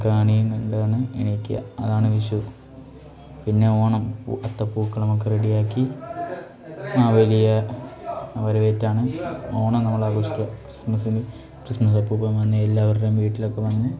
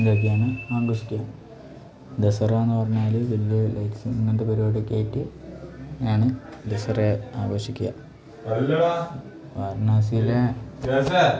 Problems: background conversations at intervals